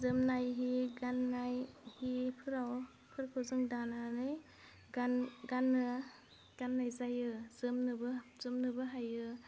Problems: low volume